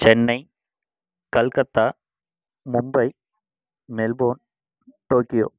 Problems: constant background noise